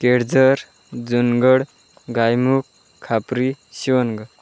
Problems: constant background noise